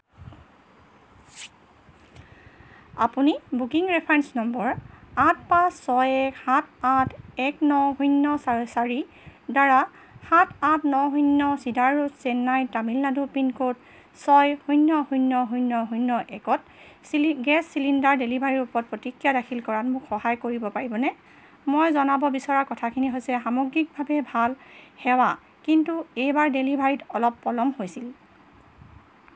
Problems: background sounds at intervals